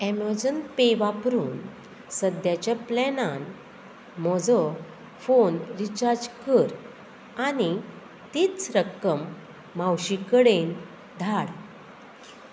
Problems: background sounds at intervals